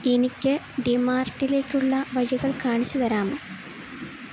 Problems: constant background noise